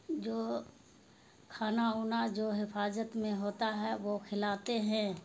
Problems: constant background noise